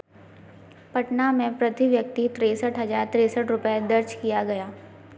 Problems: constant background noise